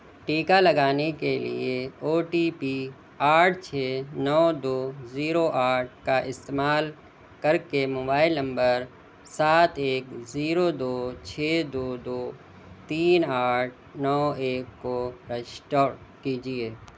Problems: none marked